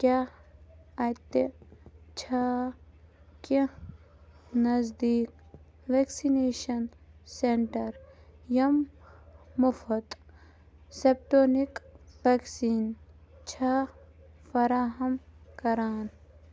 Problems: low volume